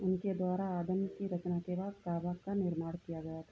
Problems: none marked